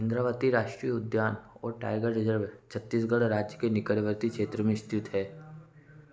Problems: constant background noise